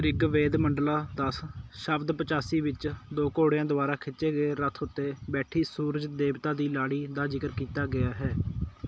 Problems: none marked